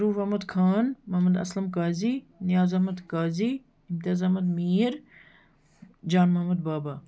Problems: none marked